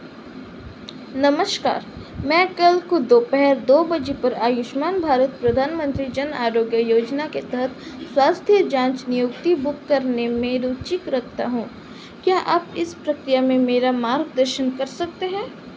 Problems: constant background noise